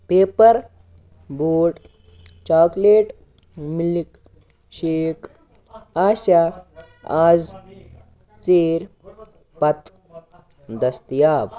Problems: constant background noise